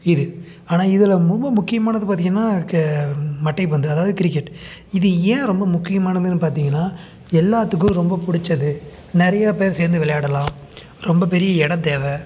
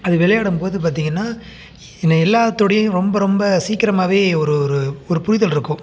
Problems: none marked